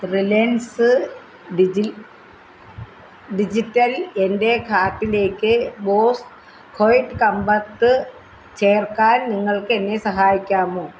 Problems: none marked